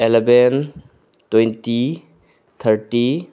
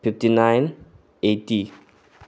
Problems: background sounds at intervals